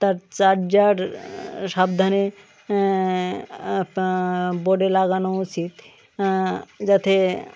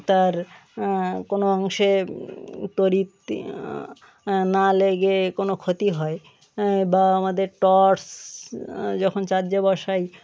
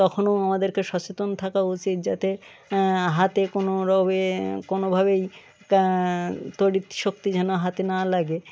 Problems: none marked